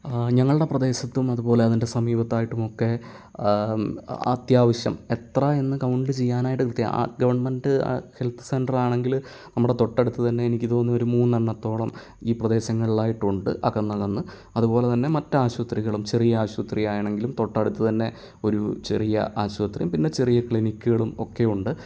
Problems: none marked